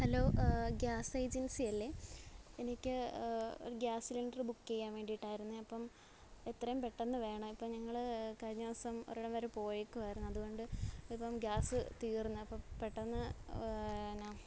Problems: low volume